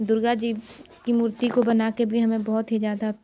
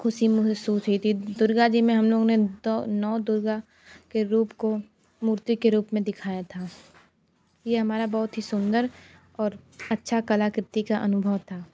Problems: constant background noise